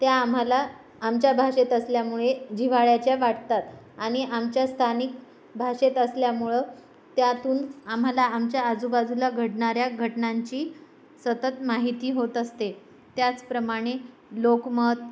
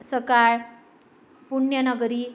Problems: none marked